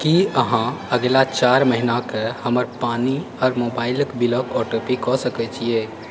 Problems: background sounds at intervals